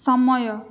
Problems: none marked